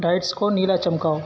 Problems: constant background noise